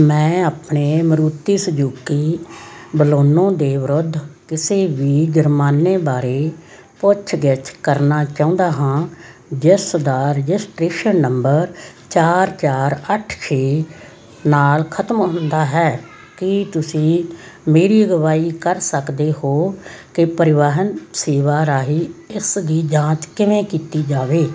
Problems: constant background noise, background conversations at intervals